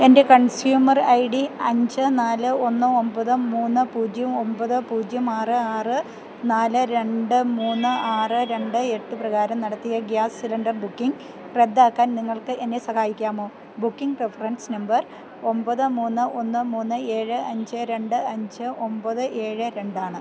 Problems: none marked